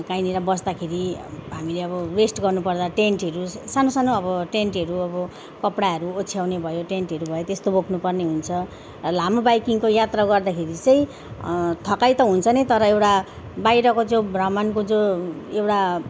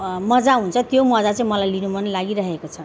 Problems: background sounds at intervals